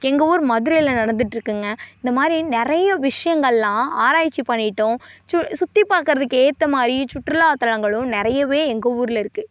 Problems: none marked